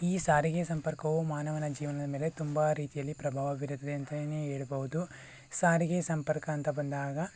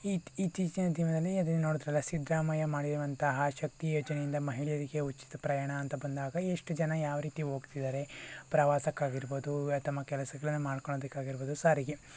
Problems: constant background noise